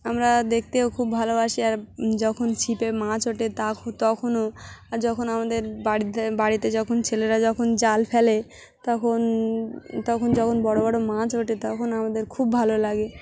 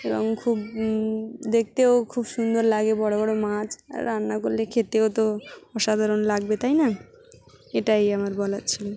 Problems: background sounds at intervals, continuous background conversations